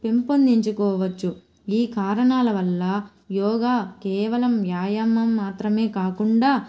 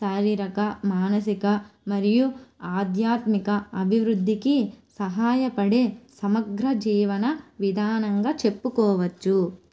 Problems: none marked